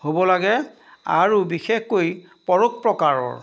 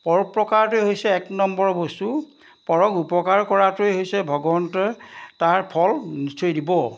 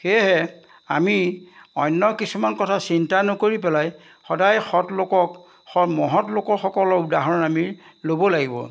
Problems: background sounds at intervals